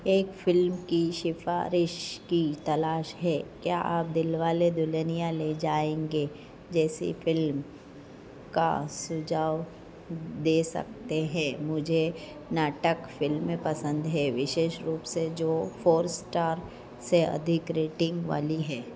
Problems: constant background noise, low volume